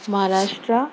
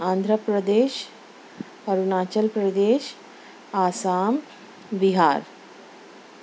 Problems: none marked